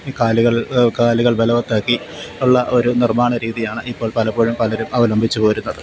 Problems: none marked